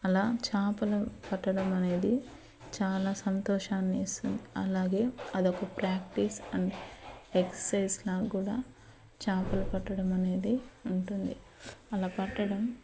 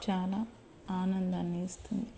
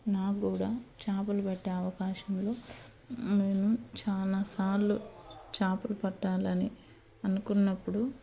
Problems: constant background noise